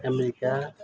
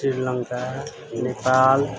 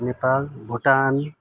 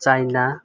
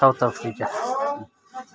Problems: constant background noise, continuous background conversations